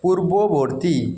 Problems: echo